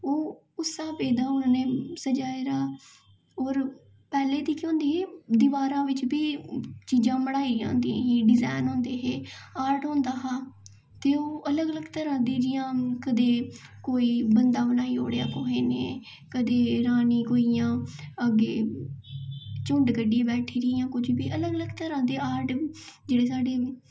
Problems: echo